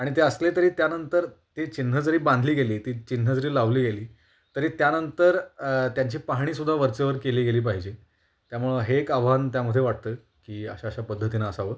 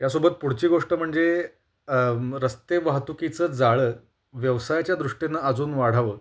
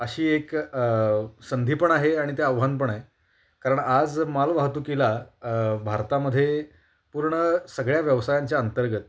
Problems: none marked